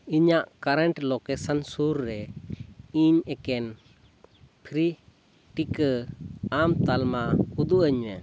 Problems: constant background noise